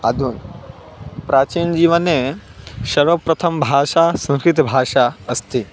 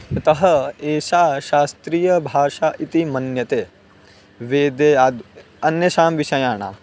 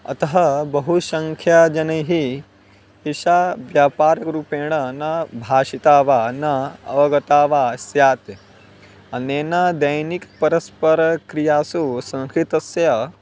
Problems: background sounds at intervals